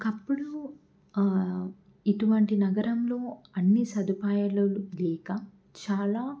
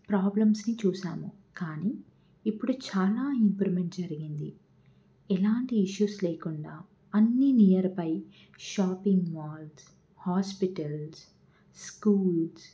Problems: none marked